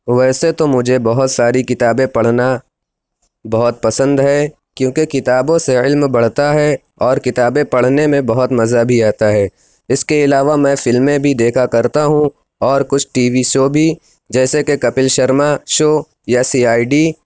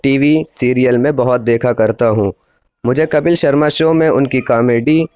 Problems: constant background noise